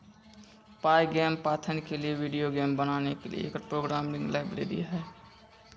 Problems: none marked